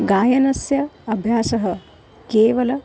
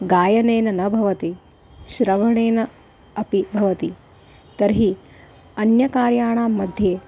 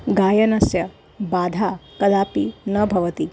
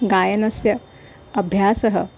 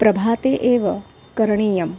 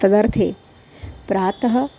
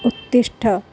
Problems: constant background noise